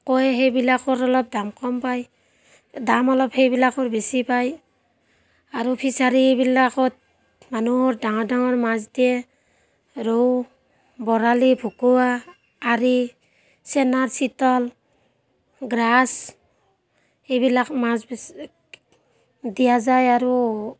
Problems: constant background noise, background conversations at intervals